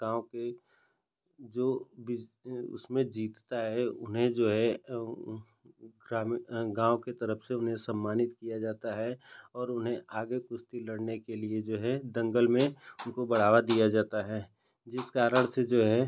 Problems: none marked